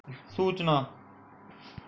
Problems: background sounds at intervals